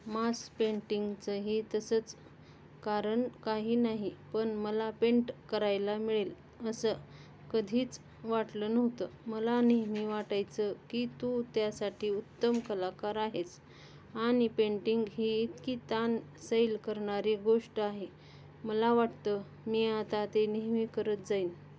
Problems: constant background noise, continuous background conversations